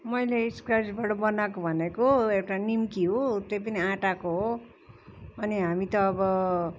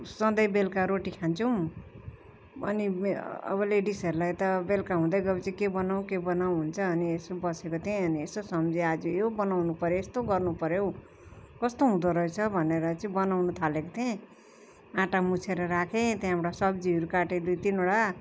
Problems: constant background noise